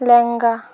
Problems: constant background noise